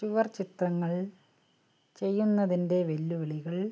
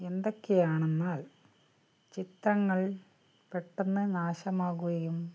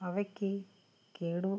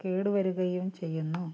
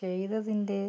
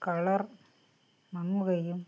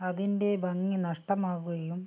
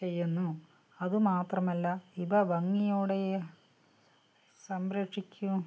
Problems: low volume